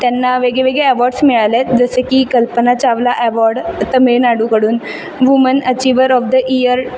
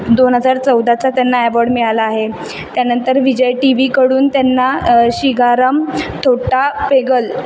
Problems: constant background noise, background conversations at intervals